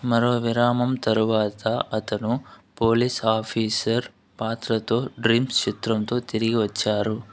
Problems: background conversations at intervals